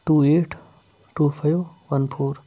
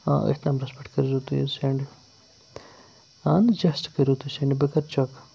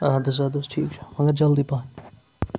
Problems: constant background noise